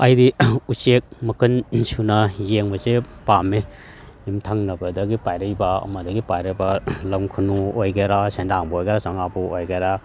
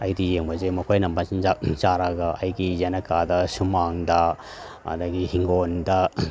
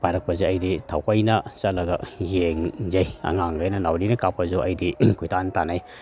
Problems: none marked